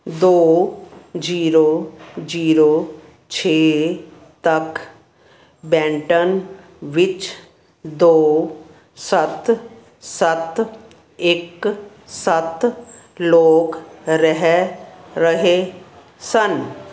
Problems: constant background noise